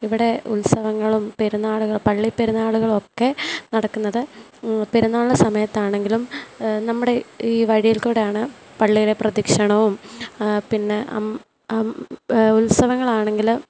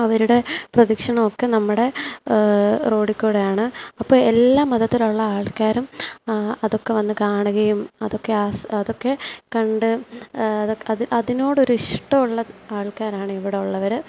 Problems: constant background noise, low volume